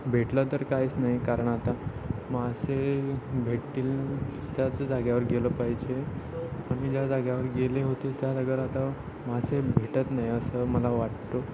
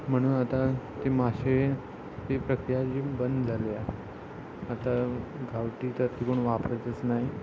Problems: constant background noise, continuous background conversations